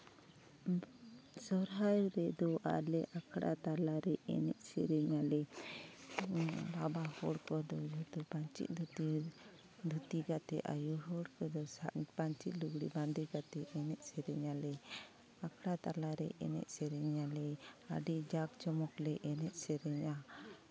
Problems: constant background noise, continuous background conversations